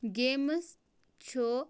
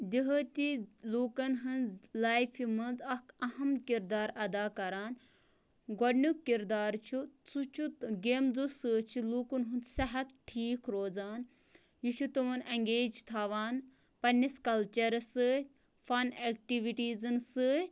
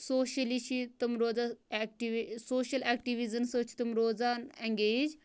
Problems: low volume